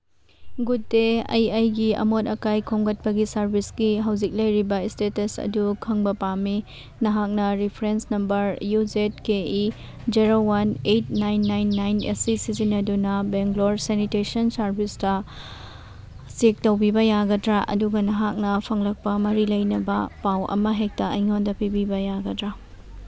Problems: background sounds at intervals